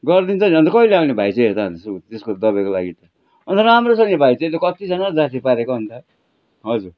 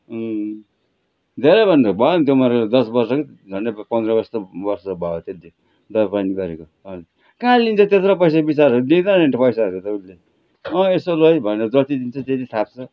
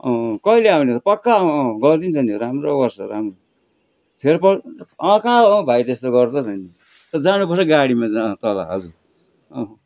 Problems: background sounds at intervals